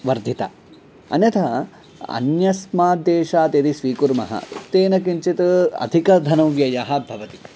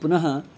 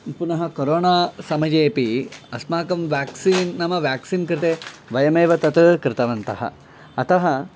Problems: none marked